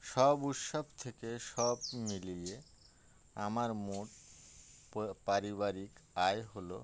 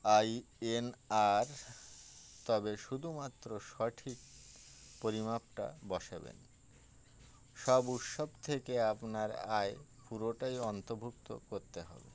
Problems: constant background noise